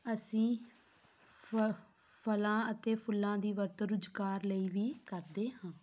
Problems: none marked